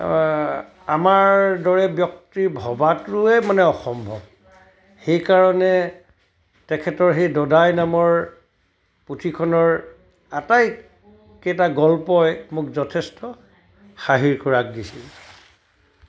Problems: continuous background conversations